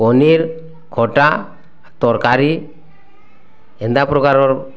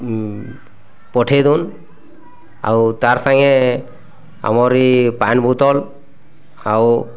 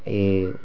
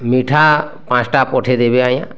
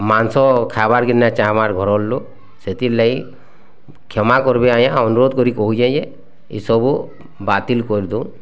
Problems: constant background noise